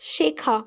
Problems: none marked